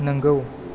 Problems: none marked